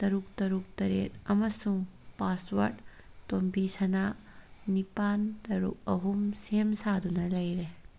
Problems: none marked